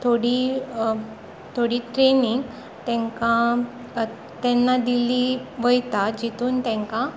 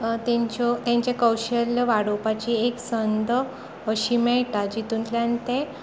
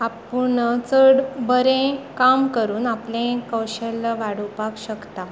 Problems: constant background noise